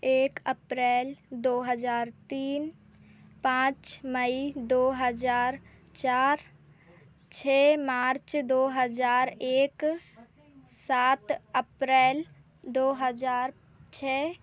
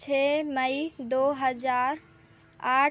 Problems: constant background noise